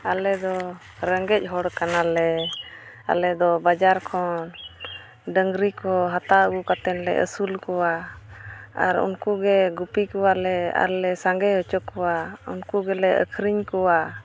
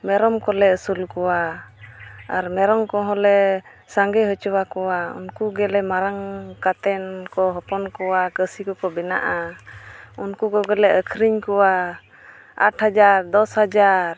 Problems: background sounds at intervals, background conversations at intervals